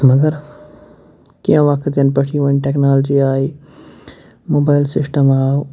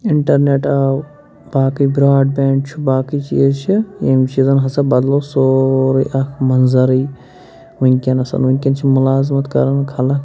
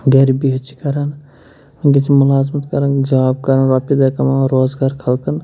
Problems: constant background noise